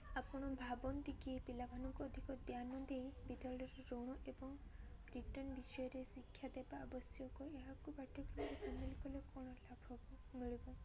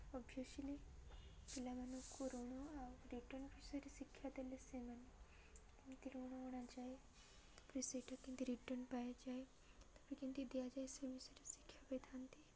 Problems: none marked